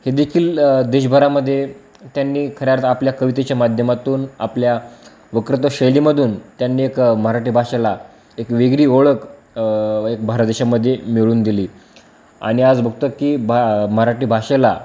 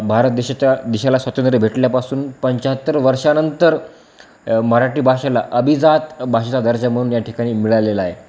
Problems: background sounds at intervals